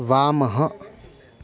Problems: constant background noise